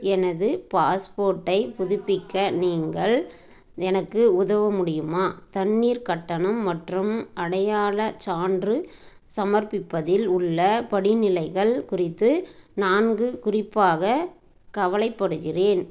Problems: background conversations at intervals